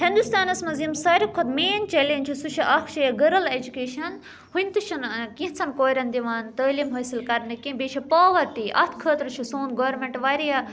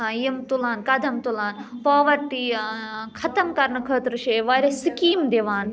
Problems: background conversations at intervals